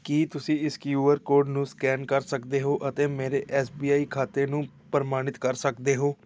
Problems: background sounds at intervals